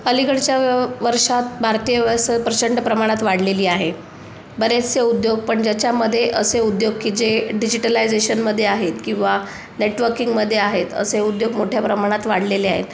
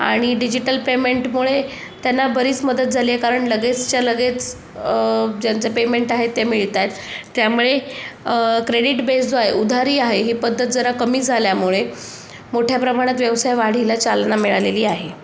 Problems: none marked